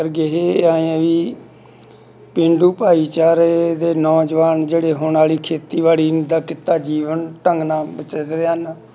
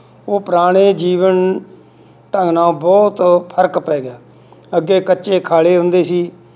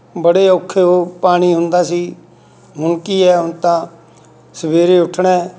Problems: none marked